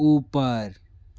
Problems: constant background noise